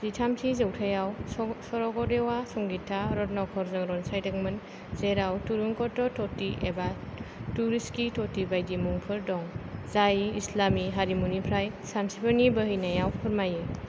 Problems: none marked